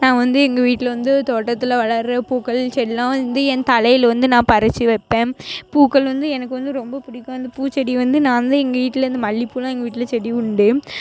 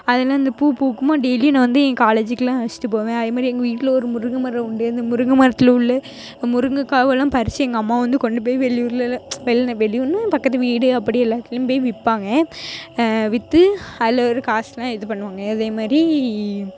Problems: background sounds at intervals